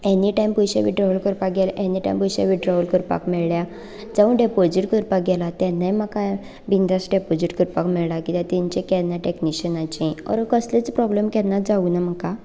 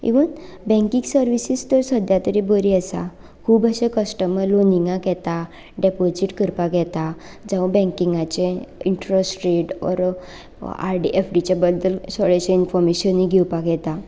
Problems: none marked